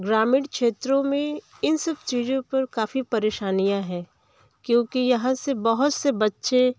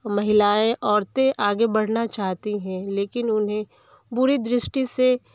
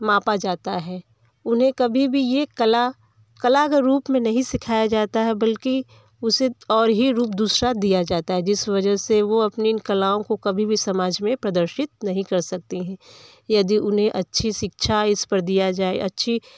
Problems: background sounds at intervals, background conversations at intervals